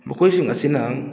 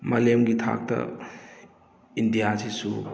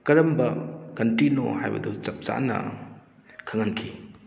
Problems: none marked